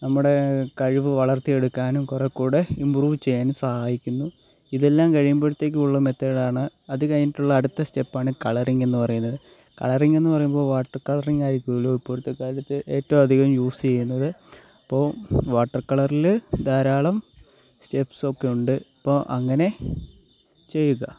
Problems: none marked